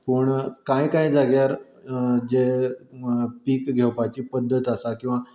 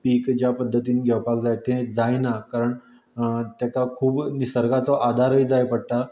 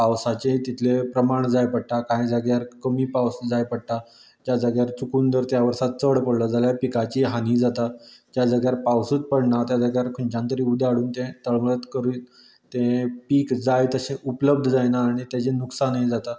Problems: none marked